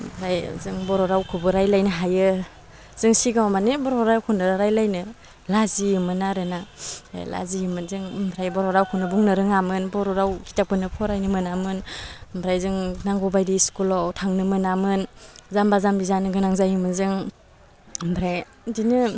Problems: low volume